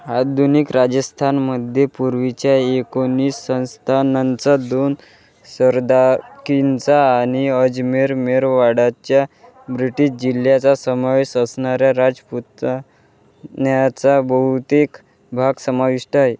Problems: constant background noise, continuous background conversations